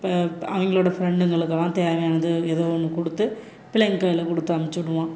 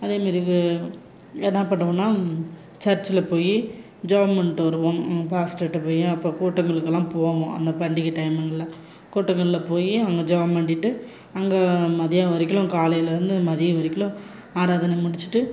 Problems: constant background noise